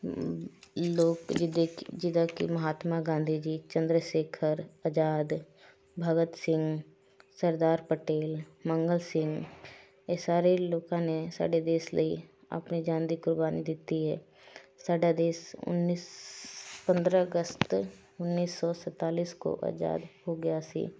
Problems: none marked